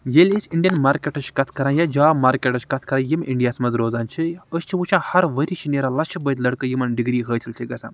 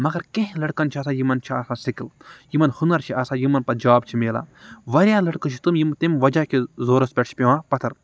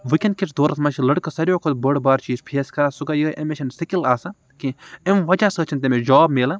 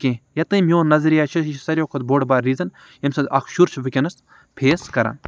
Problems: none marked